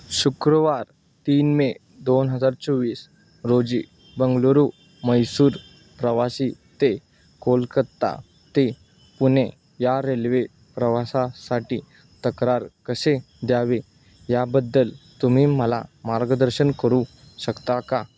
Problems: none marked